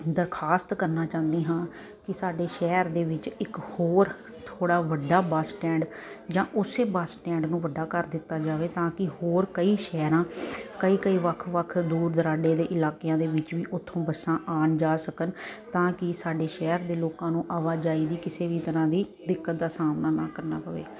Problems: constant background noise